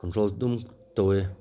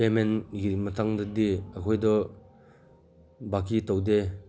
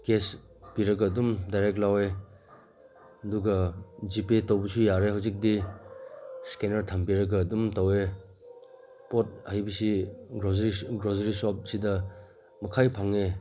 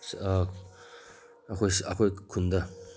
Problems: background sounds at intervals